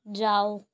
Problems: none marked